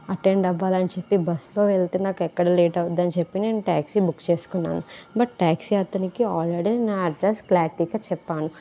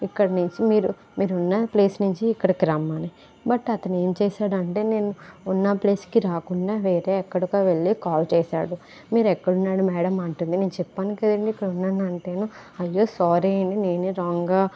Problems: none marked